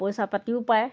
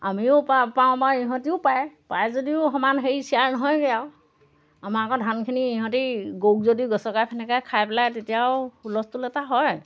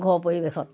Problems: background sounds at intervals